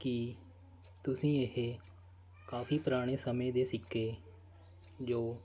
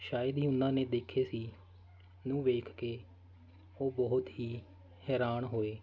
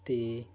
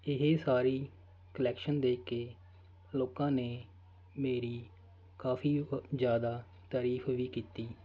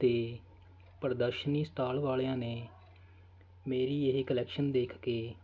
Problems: constant background noise